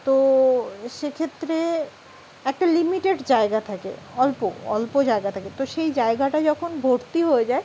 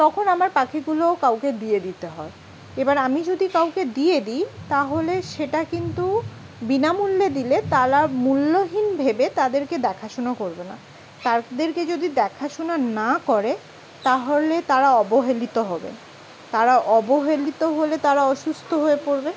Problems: none marked